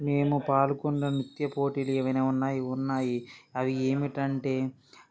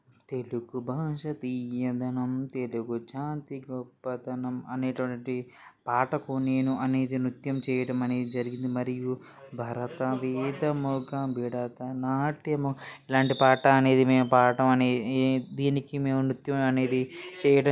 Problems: background conversations at intervals